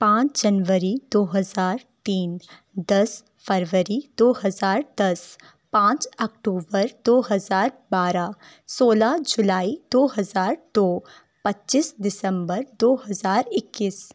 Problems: none marked